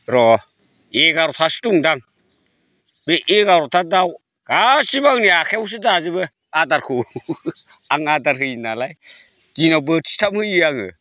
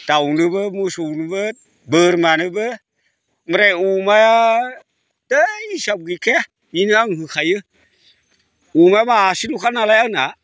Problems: constant background noise